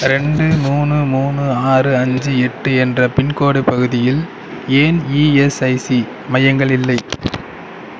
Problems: none marked